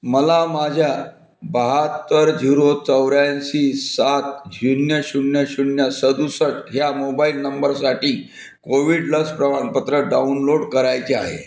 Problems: none marked